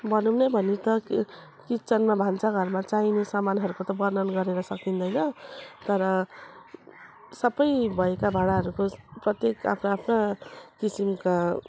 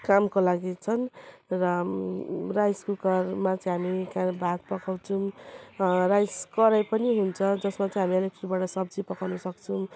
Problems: none marked